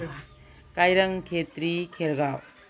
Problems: none marked